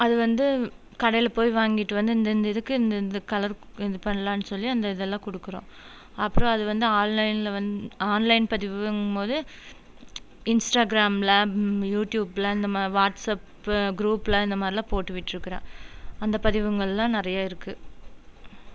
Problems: none marked